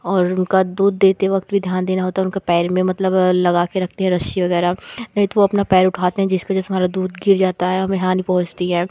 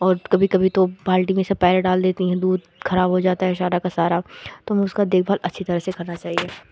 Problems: none marked